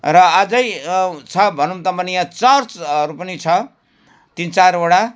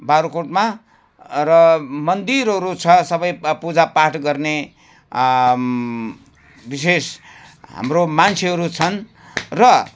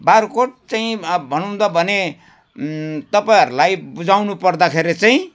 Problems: background sounds at intervals